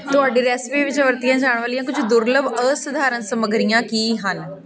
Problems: continuous background conversations